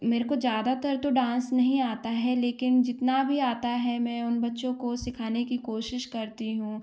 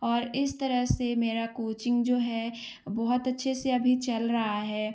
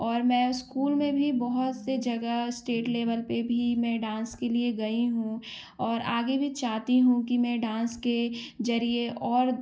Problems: none marked